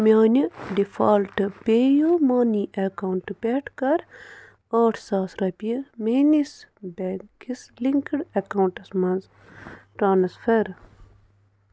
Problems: constant background noise